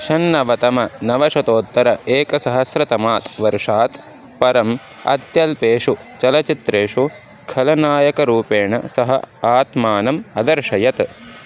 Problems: constant background noise